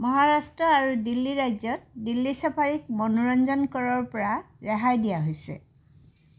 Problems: none marked